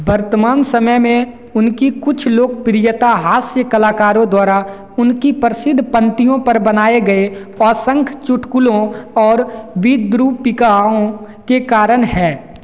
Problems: constant background noise, echo